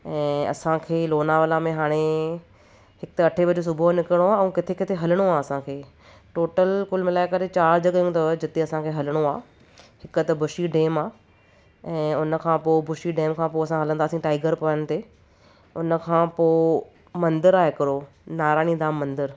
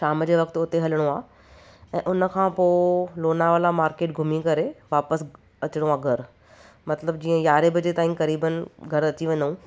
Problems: none marked